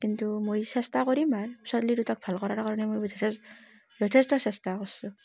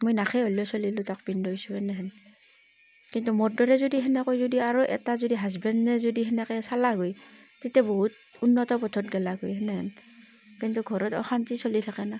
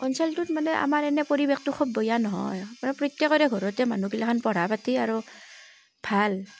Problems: constant background noise